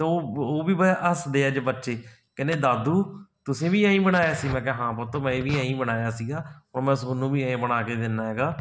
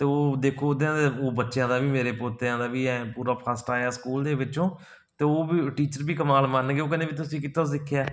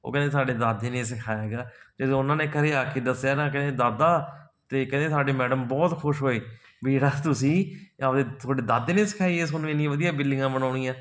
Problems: none marked